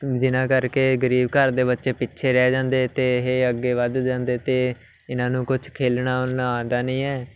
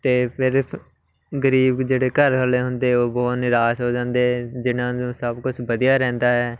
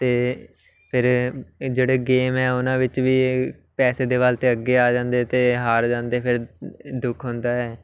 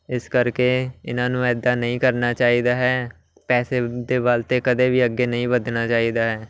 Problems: constant background noise, background conversations at intervals